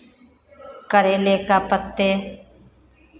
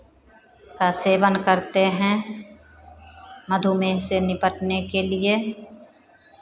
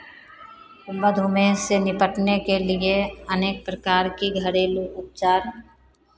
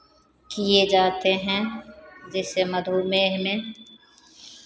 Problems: none marked